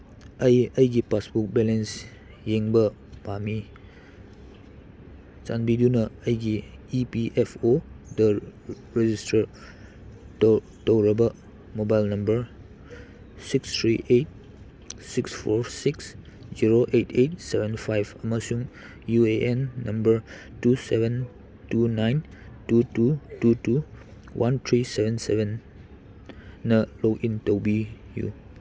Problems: background sounds at intervals